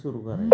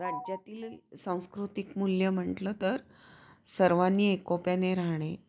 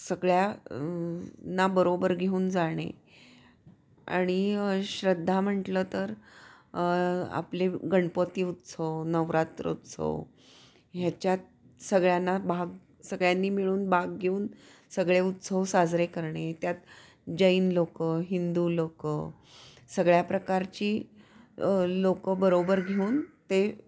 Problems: background sounds at intervals, background conversations at intervals